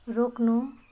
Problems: background conversations at intervals